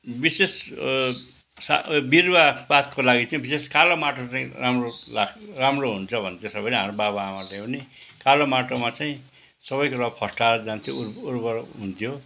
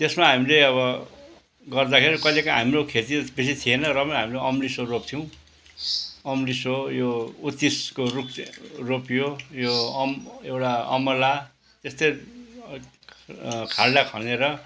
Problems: constant background noise